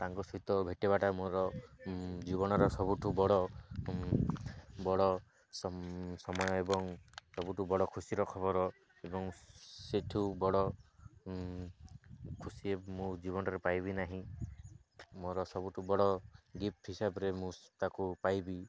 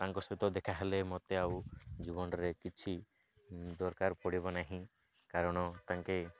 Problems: none marked